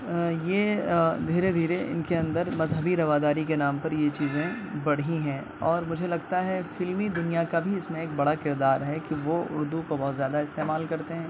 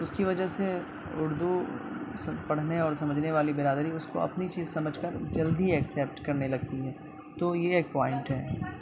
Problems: constant background noise, background conversations at intervals